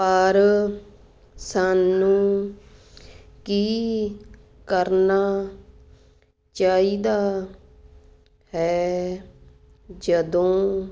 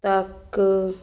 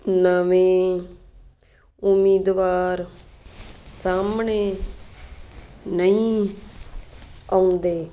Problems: constant background noise